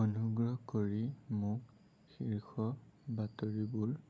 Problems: low volume